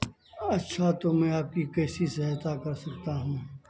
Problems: constant background noise, low volume